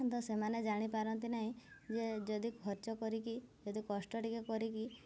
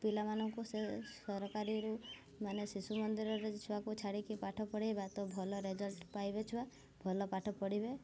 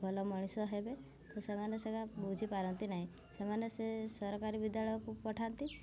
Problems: none marked